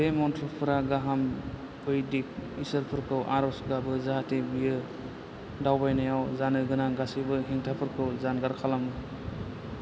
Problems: constant background noise